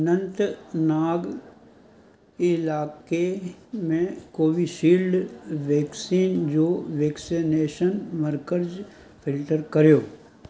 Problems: constant background noise